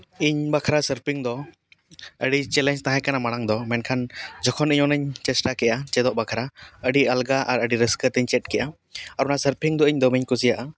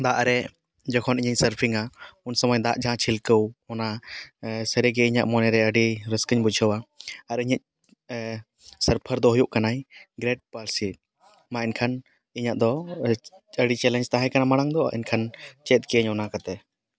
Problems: background sounds at intervals